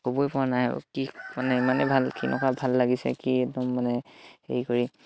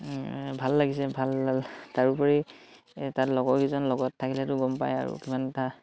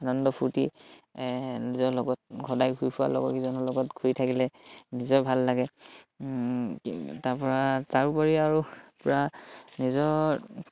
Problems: none marked